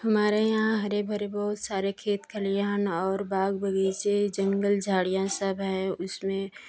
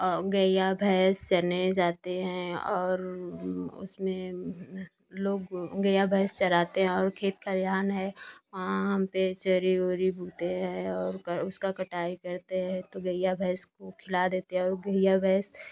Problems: constant background noise